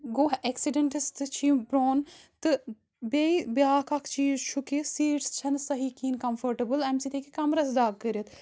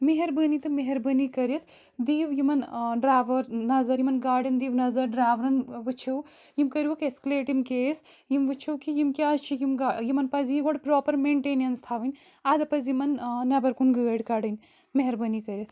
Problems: background sounds at intervals